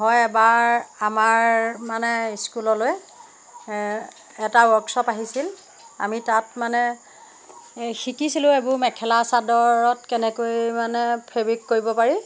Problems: constant background noise